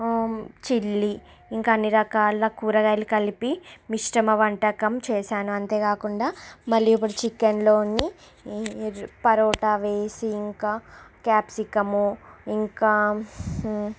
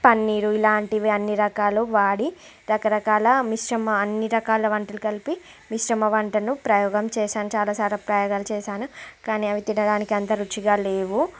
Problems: constant background noise